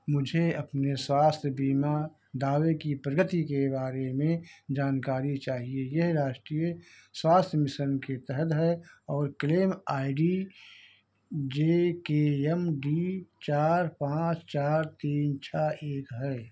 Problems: none marked